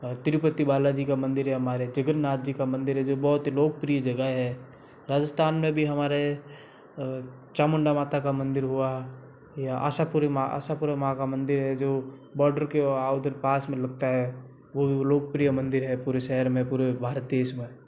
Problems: constant background noise